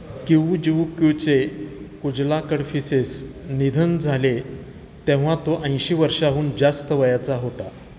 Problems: none marked